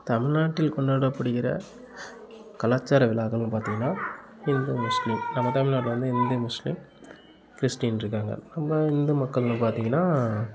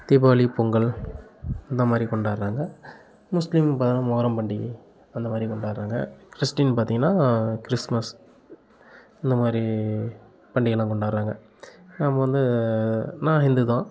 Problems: constant background noise